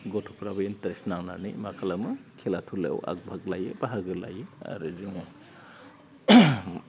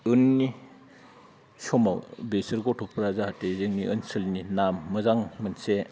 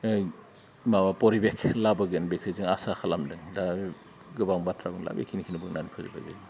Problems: low volume